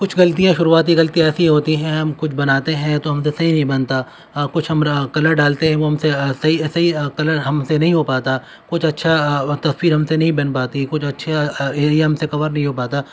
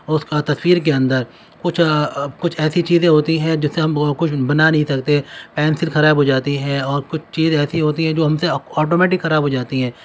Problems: none marked